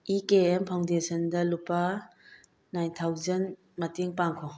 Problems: none marked